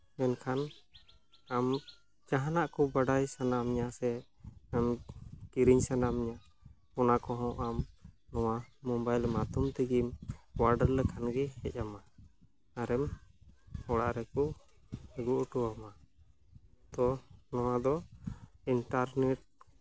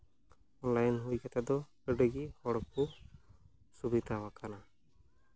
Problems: constant background noise